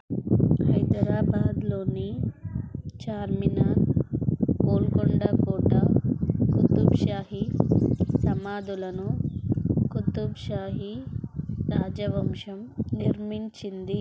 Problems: constant background noise, low volume